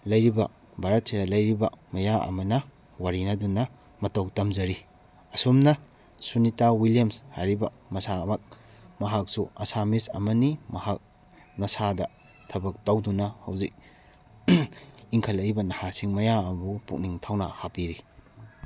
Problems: background sounds at intervals